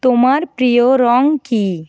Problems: none marked